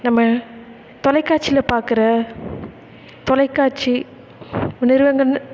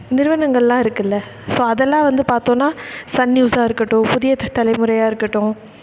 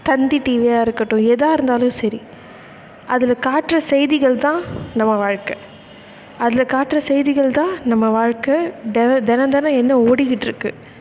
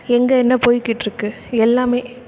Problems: none marked